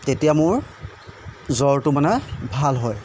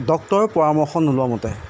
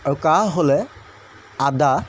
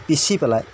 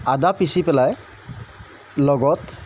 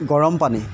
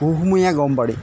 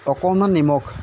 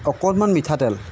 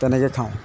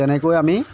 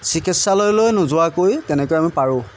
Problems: constant background noise